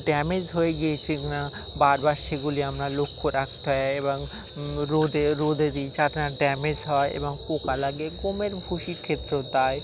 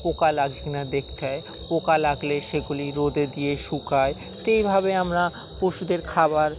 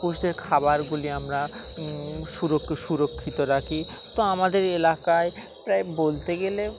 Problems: constant background noise, continuous background conversations